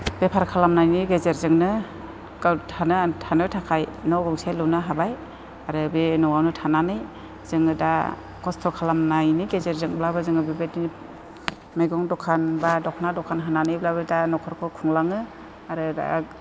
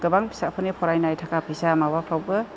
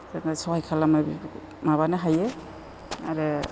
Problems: constant background noise